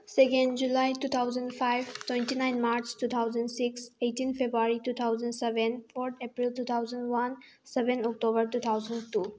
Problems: background sounds at intervals